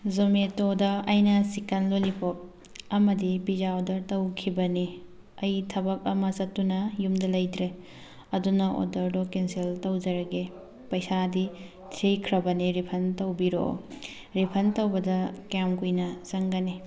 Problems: background sounds at intervals, background conversations at intervals